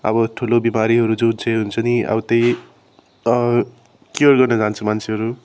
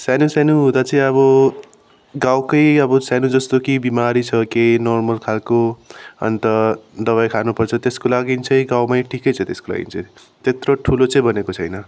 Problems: none marked